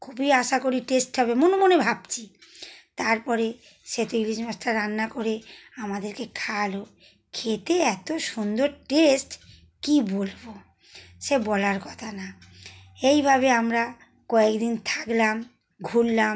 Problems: none marked